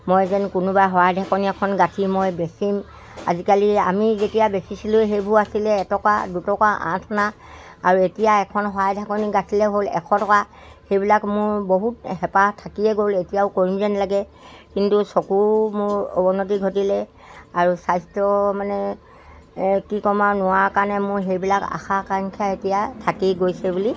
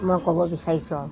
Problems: constant background noise